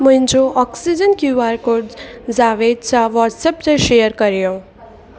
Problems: constant background noise, echo